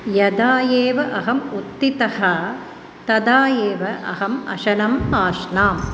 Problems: constant background noise